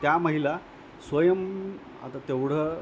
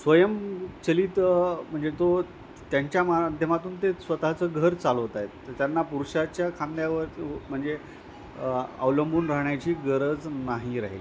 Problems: constant background noise, continuous background conversations